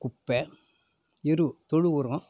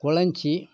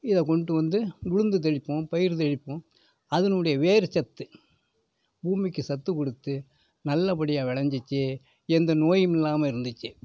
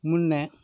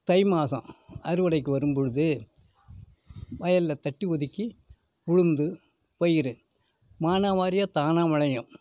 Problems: none marked